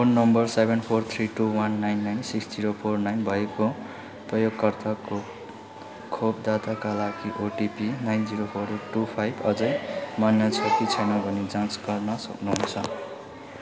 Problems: continuous background conversations